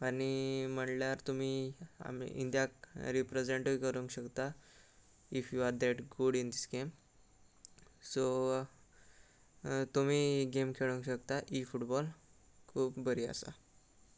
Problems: constant background noise